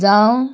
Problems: background sounds at intervals